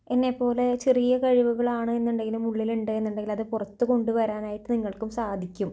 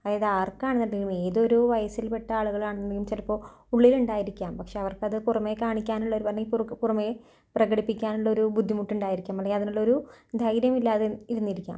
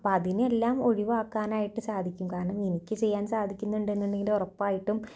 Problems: low volume